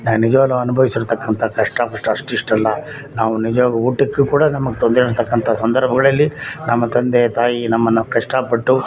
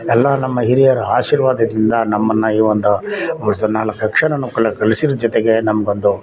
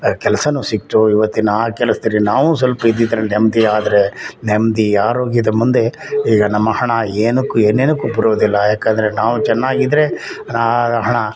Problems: none marked